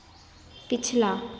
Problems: constant background noise, echo